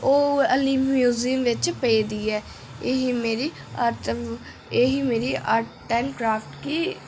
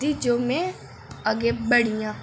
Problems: echo